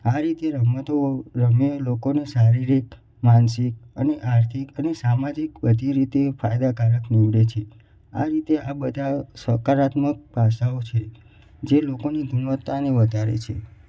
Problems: echo